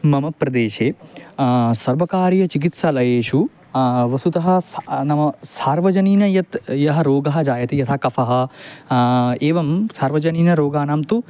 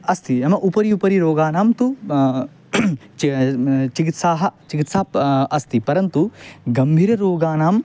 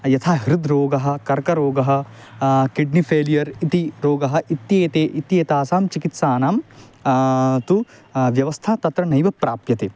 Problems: constant background noise